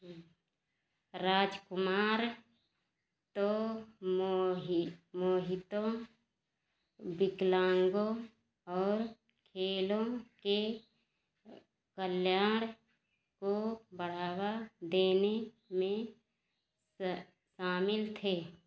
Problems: none marked